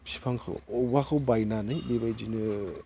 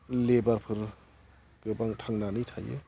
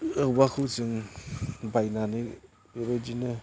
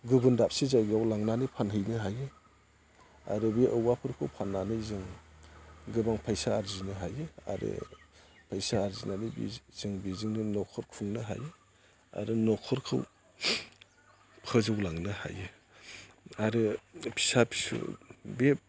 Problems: none marked